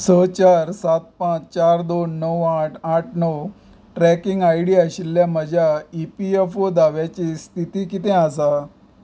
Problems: background sounds at intervals